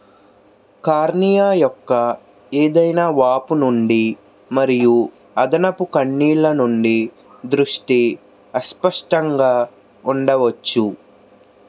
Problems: constant background noise